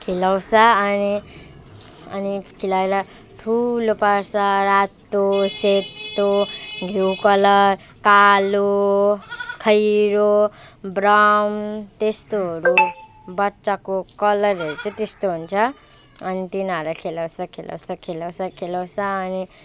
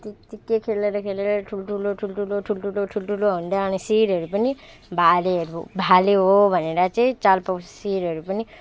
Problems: background sounds at intervals